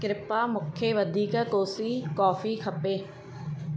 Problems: constant background noise